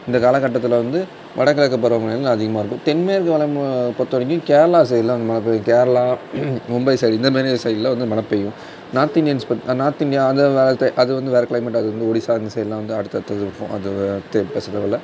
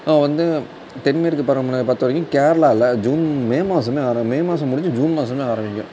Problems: constant background noise